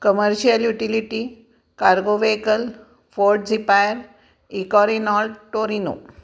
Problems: none marked